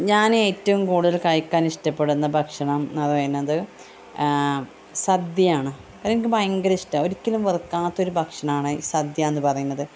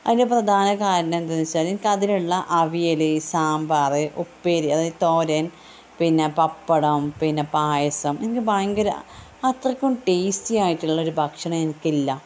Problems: constant background noise, low volume